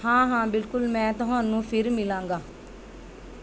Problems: background sounds at intervals